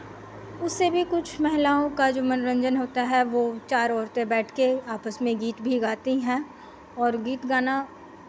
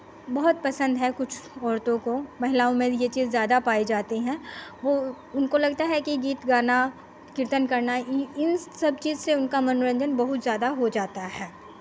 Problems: constant background noise